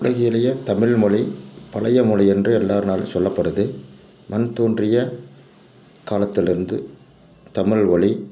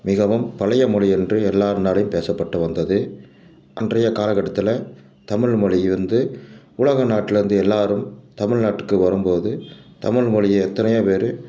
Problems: background sounds at intervals